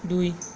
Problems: none marked